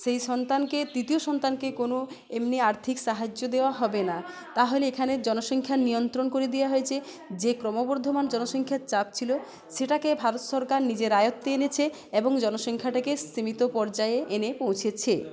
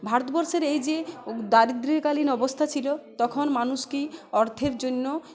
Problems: constant background noise, background conversations at intervals